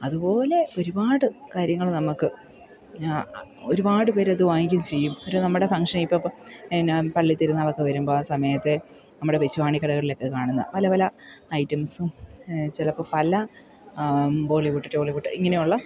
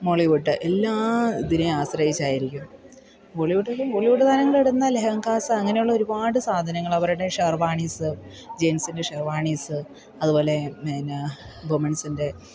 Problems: background sounds at intervals